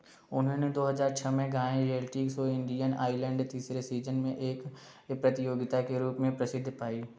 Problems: background sounds at intervals